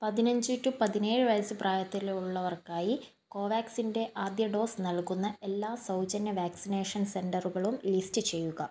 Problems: none marked